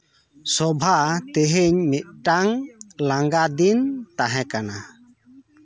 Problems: none marked